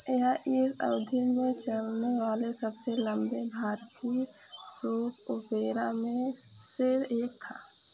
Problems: constant background noise